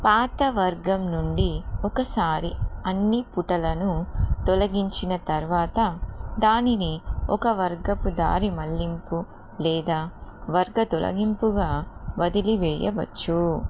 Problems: constant background noise